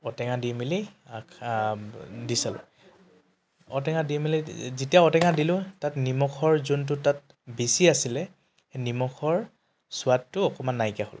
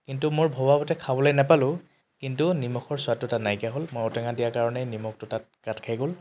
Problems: constant background noise